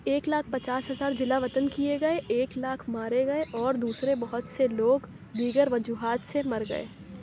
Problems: none marked